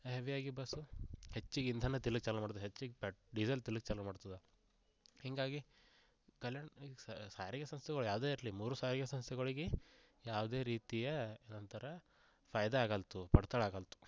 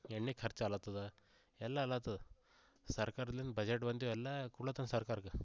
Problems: low volume